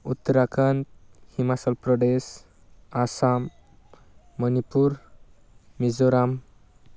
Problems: constant background noise